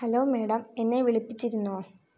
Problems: low volume